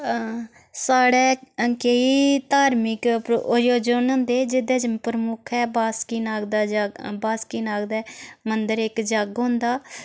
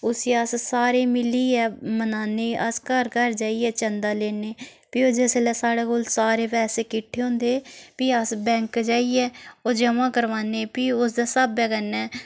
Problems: background sounds at intervals